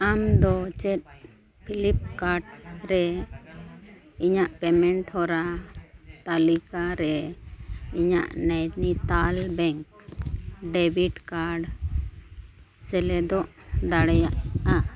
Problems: constant background noise